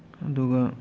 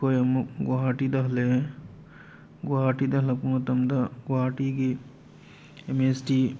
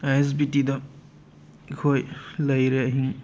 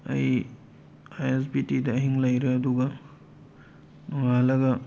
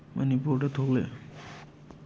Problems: background sounds at intervals